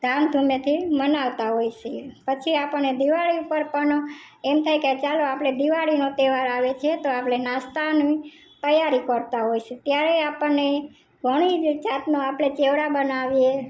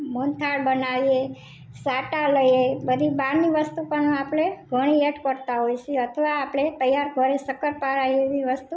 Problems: none marked